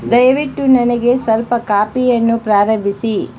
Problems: background sounds at intervals